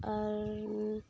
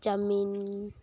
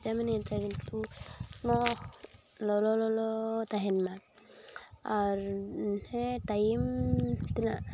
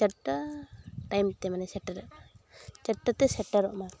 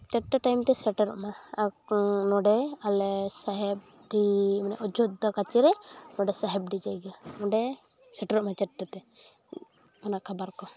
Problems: constant background noise, background conversations at intervals